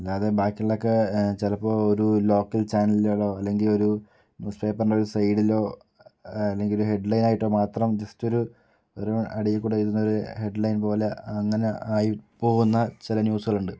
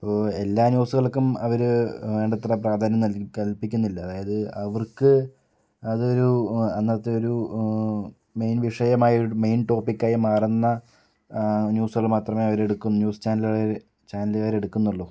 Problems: none marked